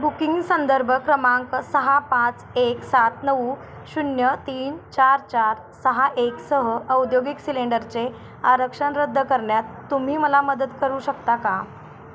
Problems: constant background noise